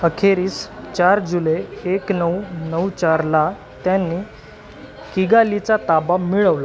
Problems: constant background noise